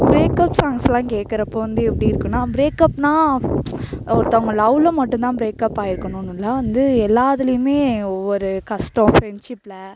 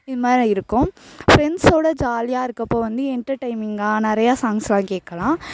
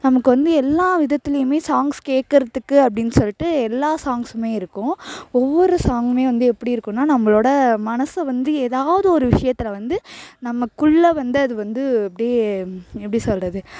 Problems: constant background noise